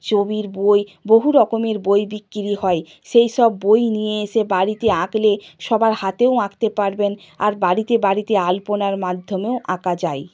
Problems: background sounds at intervals